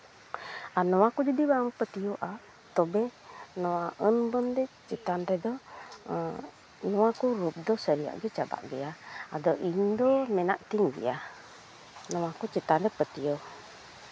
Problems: constant background noise, continuous background conversations